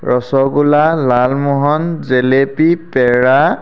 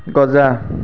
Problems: constant background noise